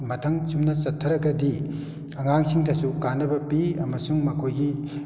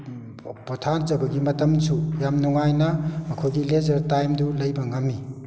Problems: background sounds at intervals